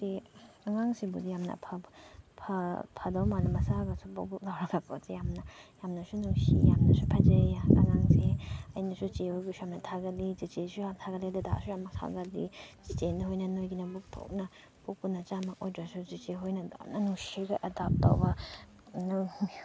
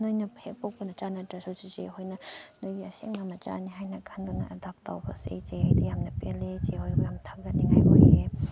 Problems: background sounds at intervals, background conversations at intervals